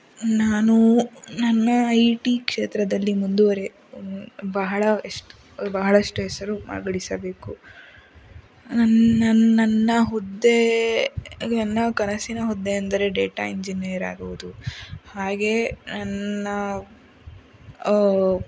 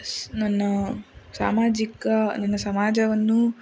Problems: none marked